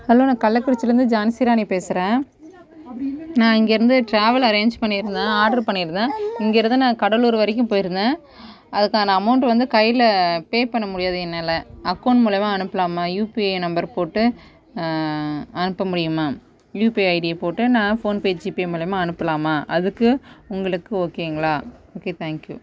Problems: background conversations at intervals